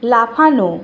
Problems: none marked